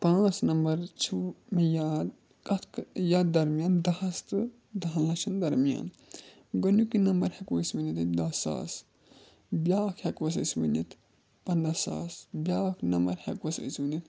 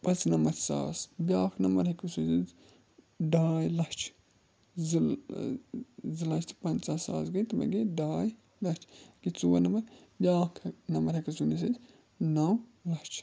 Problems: constant background noise